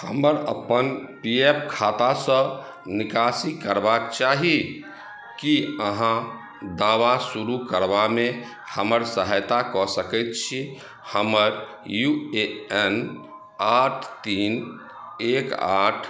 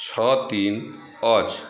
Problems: background sounds at intervals